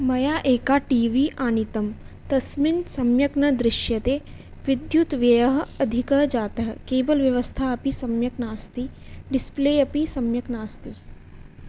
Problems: none marked